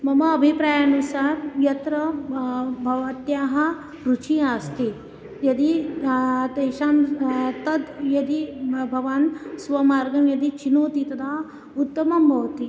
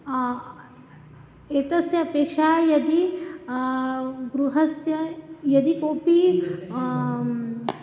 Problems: constant background noise